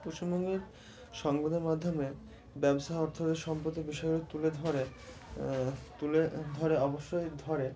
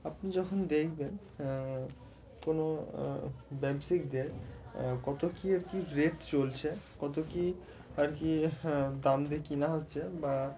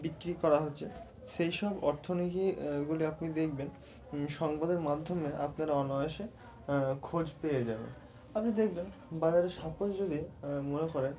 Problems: constant background noise